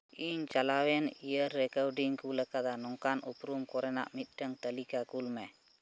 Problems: constant background noise